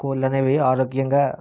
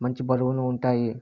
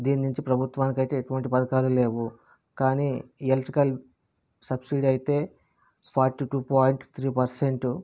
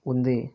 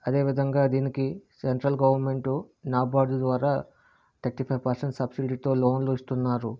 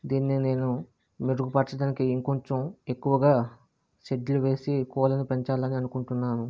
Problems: constant background noise